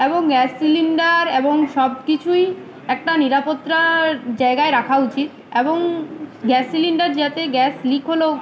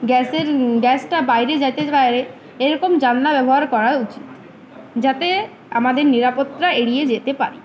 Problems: none marked